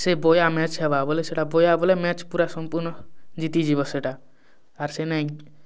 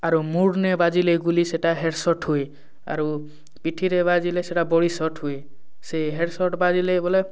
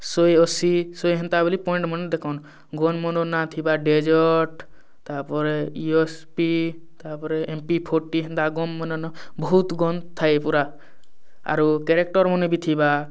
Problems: none marked